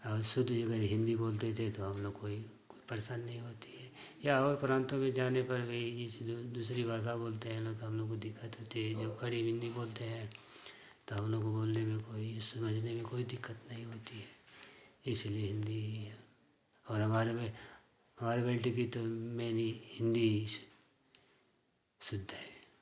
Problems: constant background noise